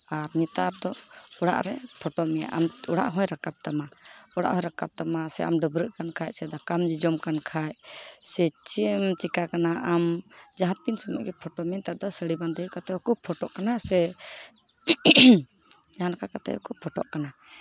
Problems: none marked